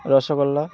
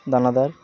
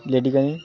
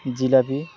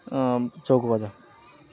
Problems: constant background noise, continuous background conversations